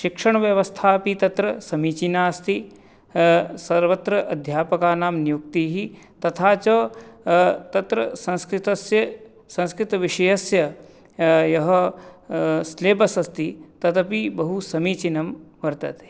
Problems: none marked